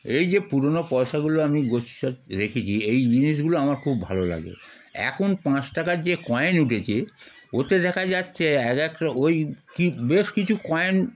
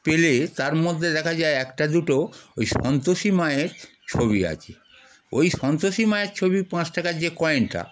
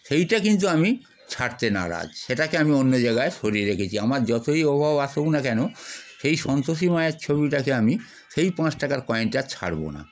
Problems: none marked